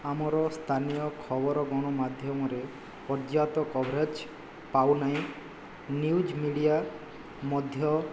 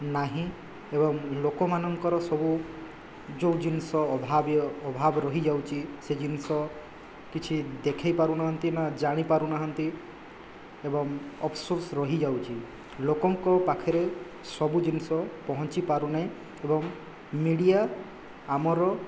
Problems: background sounds at intervals